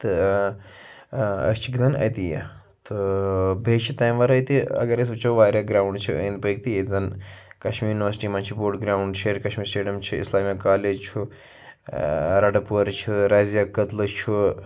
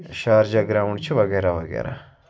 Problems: constant background noise